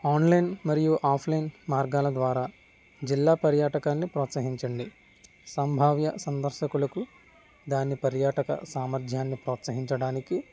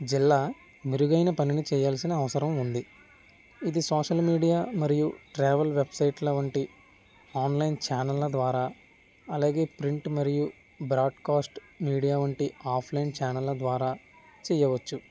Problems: background sounds at intervals